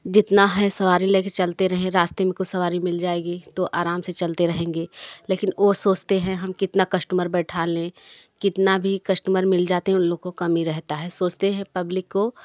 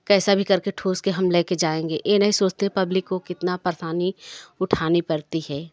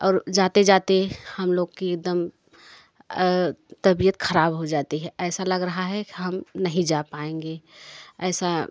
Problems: background sounds at intervals, continuous background conversations